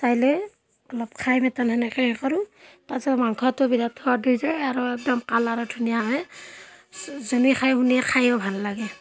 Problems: constant background noise, background conversations at intervals